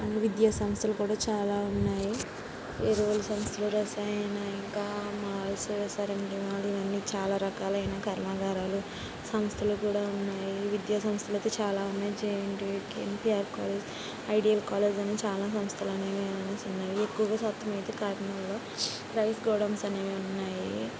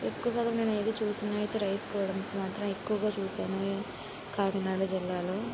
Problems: constant background noise, low volume